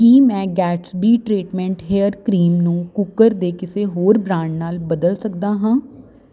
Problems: constant background noise